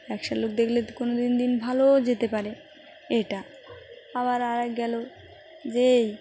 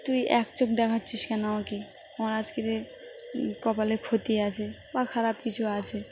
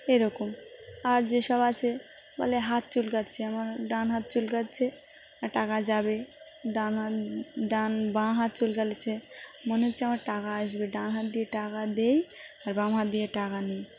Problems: none marked